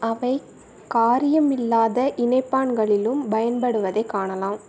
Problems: constant background noise